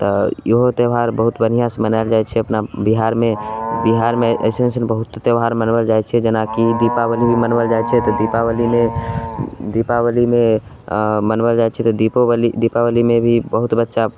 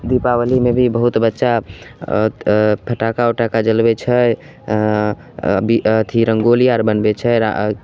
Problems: none marked